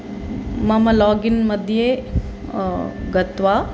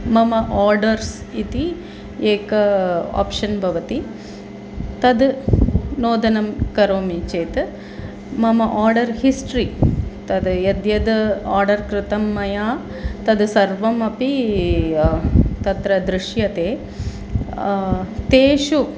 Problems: constant background noise